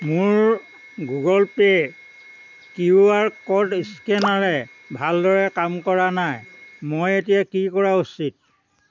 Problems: background conversations at intervals